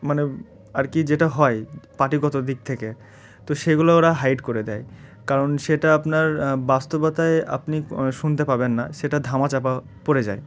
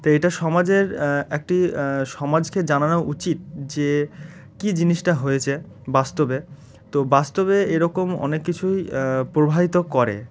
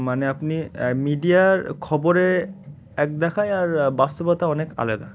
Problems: constant background noise